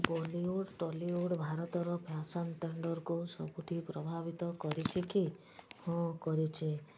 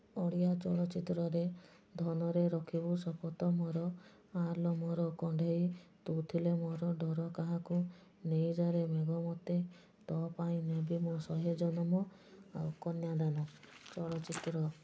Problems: low volume